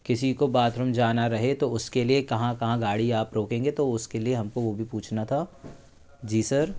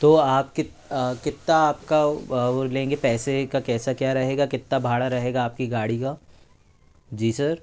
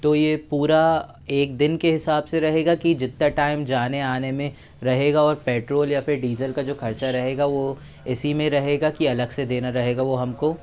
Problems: constant background noise, background conversations at intervals